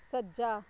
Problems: constant background noise